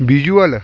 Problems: background sounds at intervals